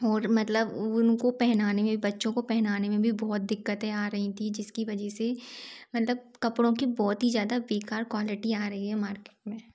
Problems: background sounds at intervals